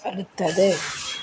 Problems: constant background noise